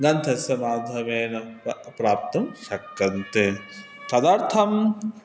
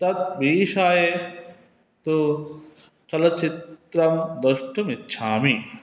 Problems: constant background noise